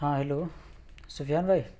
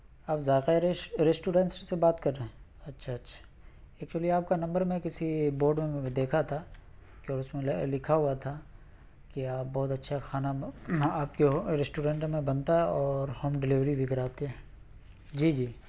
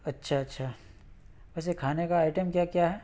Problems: none marked